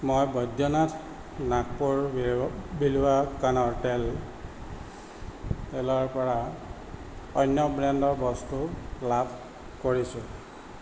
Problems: constant background noise